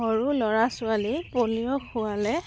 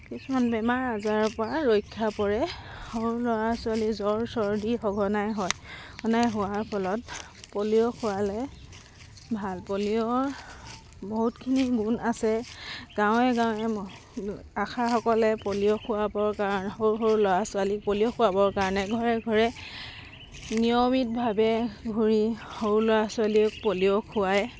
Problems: constant background noise